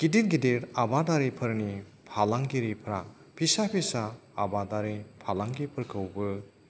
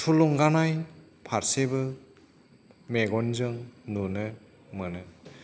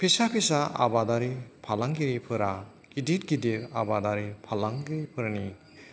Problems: background sounds at intervals